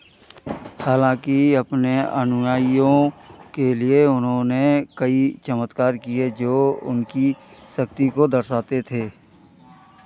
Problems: background sounds at intervals